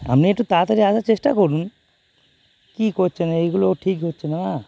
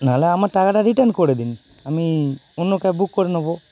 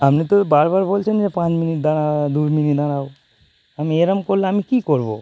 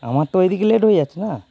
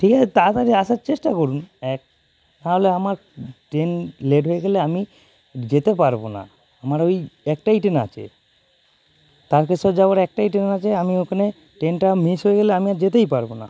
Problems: constant background noise